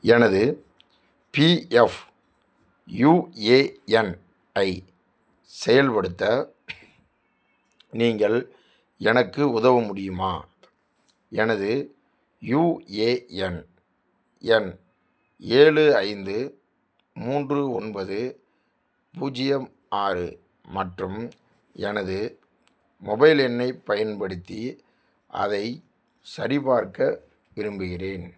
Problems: none marked